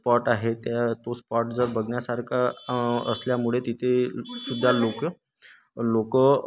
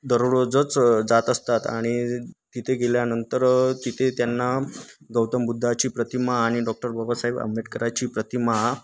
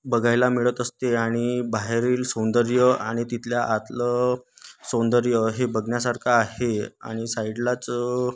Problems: none marked